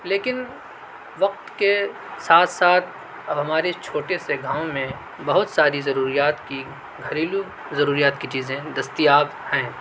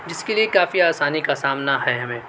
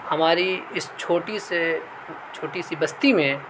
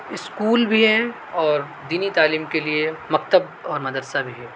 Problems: none marked